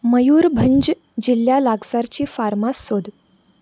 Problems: background sounds at intervals